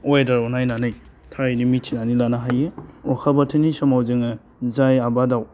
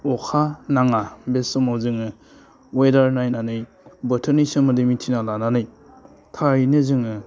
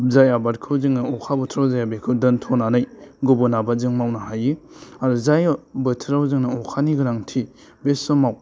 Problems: constant background noise